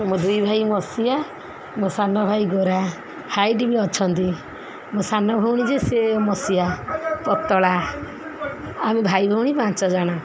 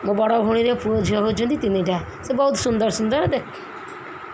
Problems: background conversations at intervals